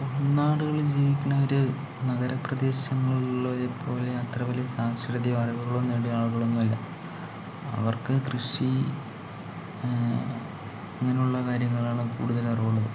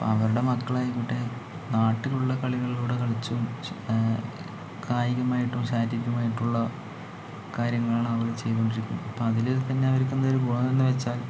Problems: low volume